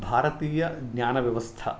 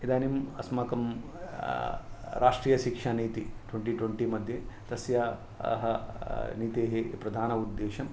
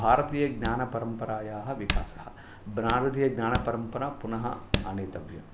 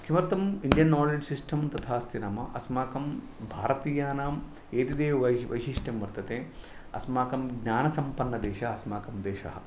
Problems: none marked